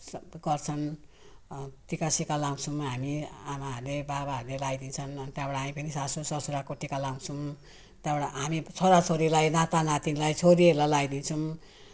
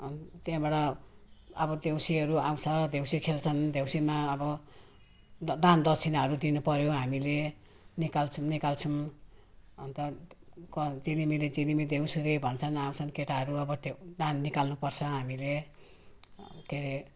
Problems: none marked